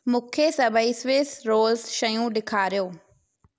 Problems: echo